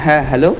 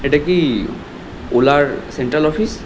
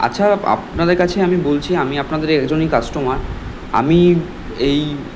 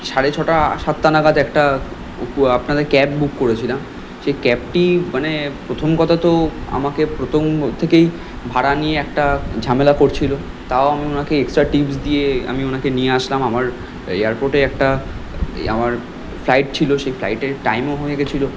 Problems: none marked